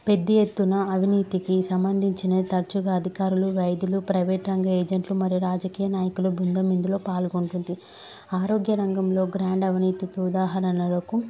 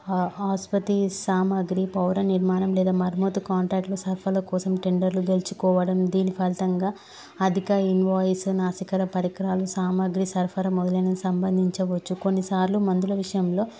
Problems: background sounds at intervals